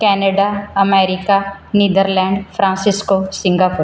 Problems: background sounds at intervals